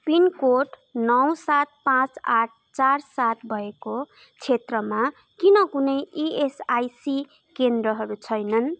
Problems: constant background noise